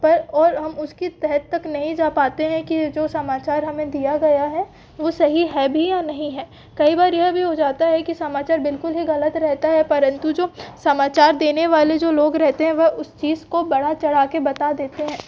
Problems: background sounds at intervals